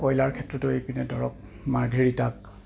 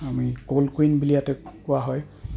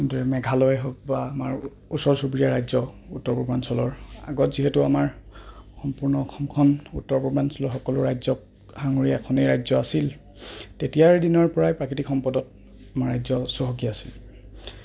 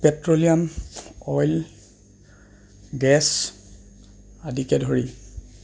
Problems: background sounds at intervals